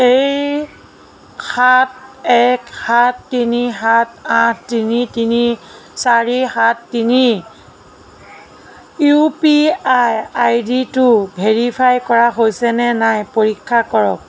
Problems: none marked